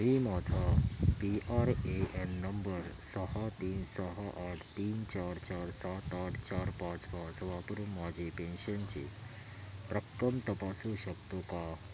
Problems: constant background noise